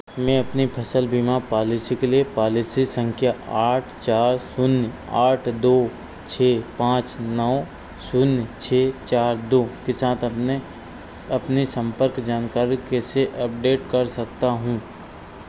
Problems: none marked